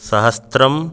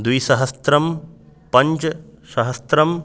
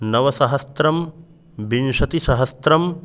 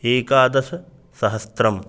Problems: none marked